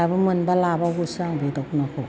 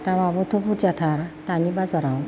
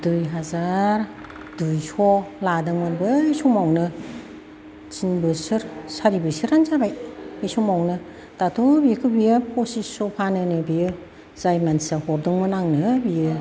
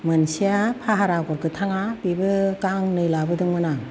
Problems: constant background noise, background conversations at intervals